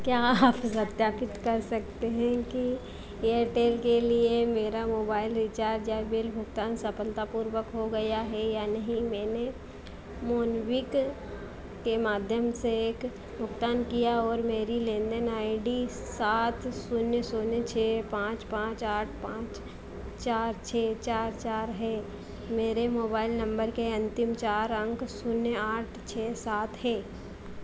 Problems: none marked